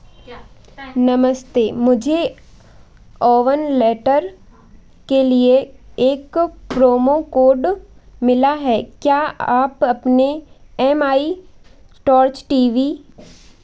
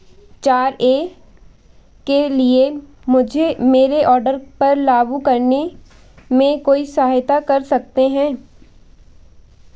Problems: constant background noise